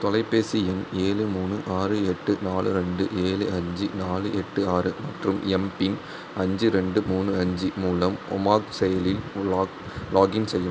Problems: background sounds at intervals